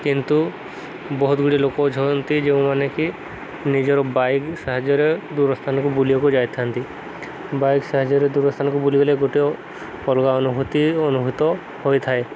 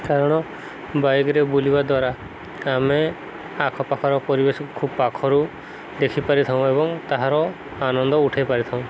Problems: constant background noise